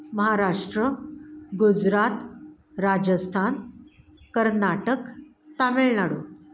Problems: background sounds at intervals